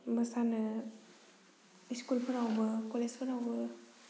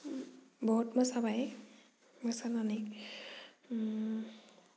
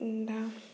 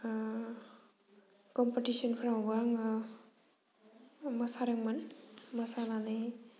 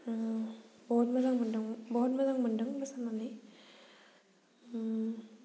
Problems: low volume